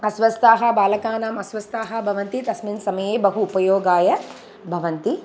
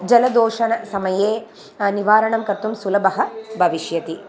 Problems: constant background noise